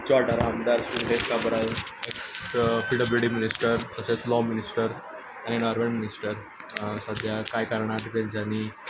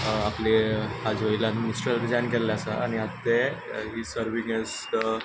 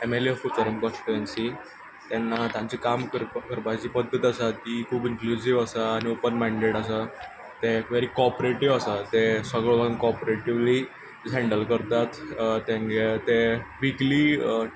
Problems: background sounds at intervals